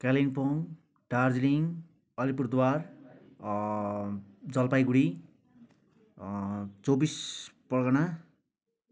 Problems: background sounds at intervals